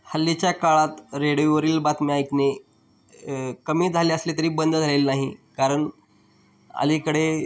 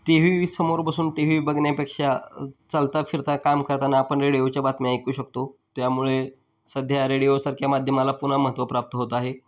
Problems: none marked